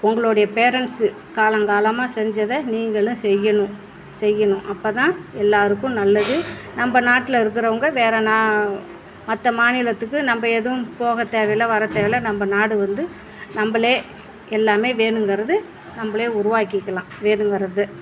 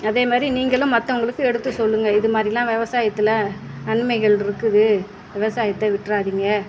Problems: none marked